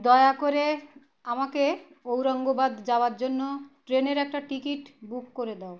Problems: none marked